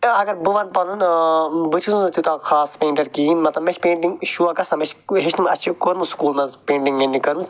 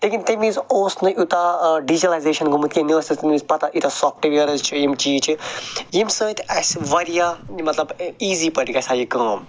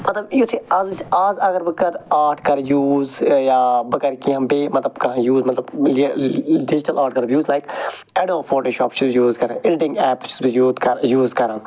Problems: none marked